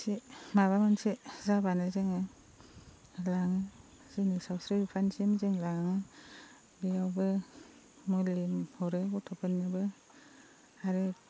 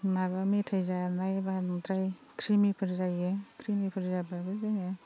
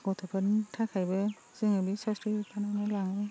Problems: constant background noise, low volume